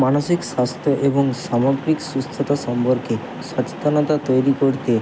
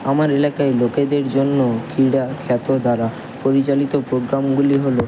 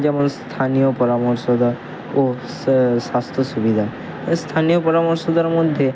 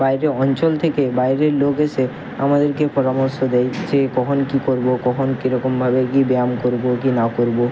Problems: constant background noise